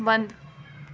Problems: low volume